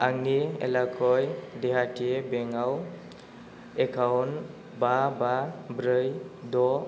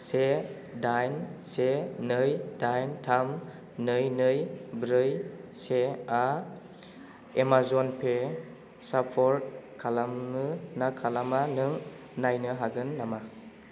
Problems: constant background noise